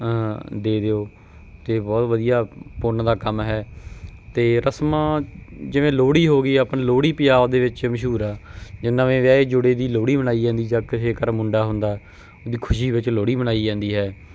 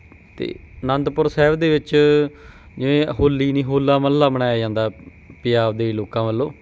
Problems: none marked